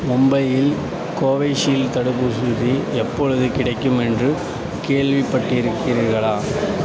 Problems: constant background noise